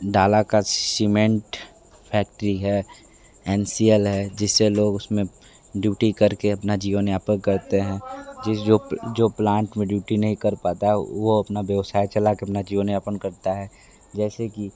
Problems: background sounds at intervals, background conversations at intervals